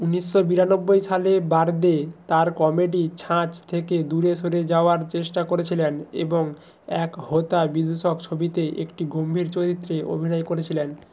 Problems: constant background noise